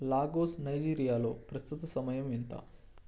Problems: low volume